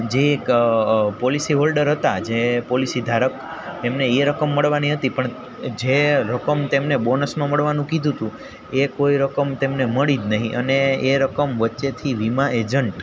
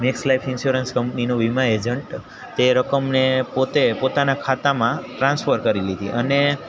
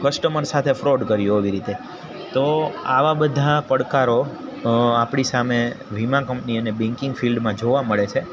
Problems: none marked